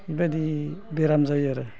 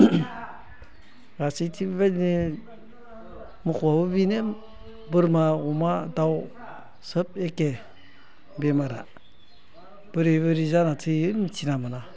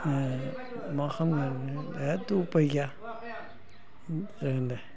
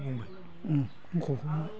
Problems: low volume